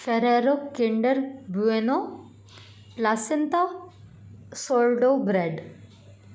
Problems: none marked